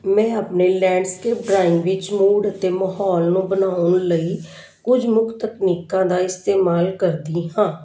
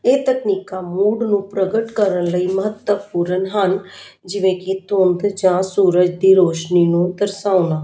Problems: background conversations at intervals